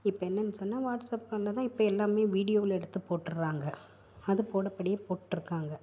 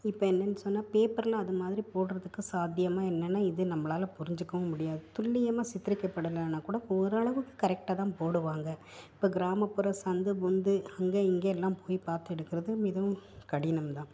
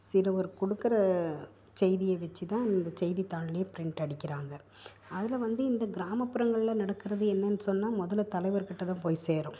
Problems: none marked